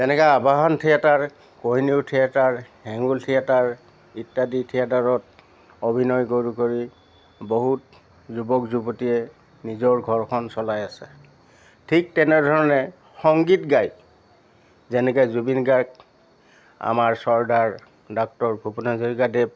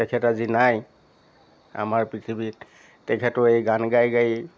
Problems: constant background noise